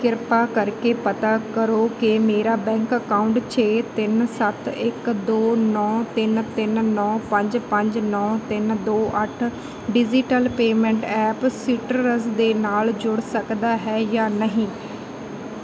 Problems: none marked